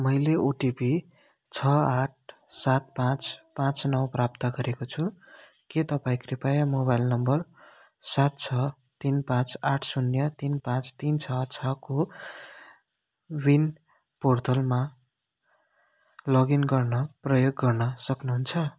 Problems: none marked